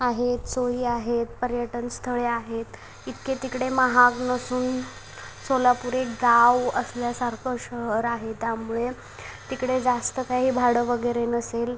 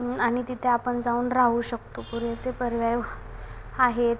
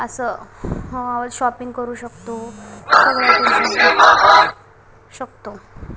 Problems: background sounds at intervals, background conversations at intervals